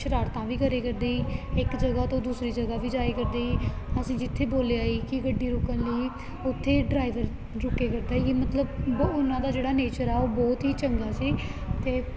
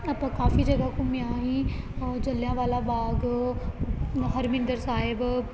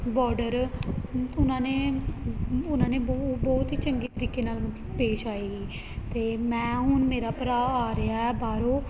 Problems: constant background noise